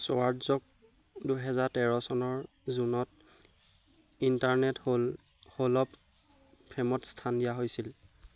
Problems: none marked